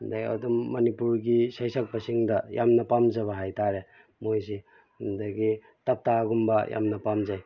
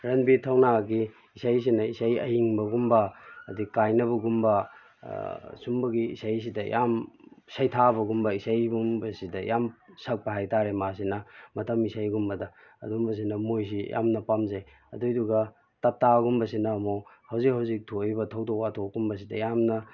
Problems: background sounds at intervals